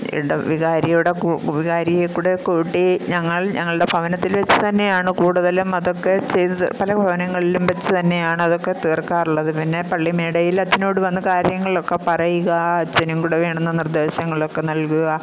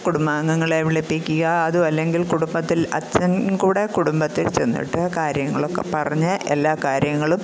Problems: constant background noise